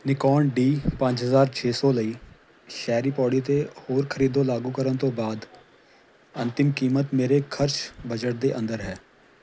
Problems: background sounds at intervals